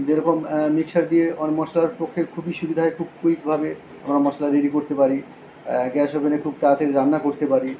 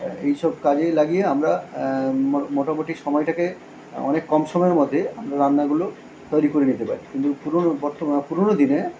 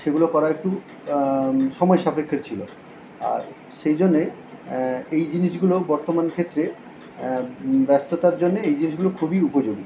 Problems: none marked